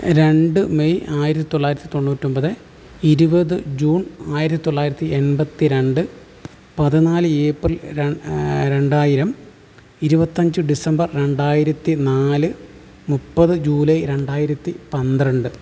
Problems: none marked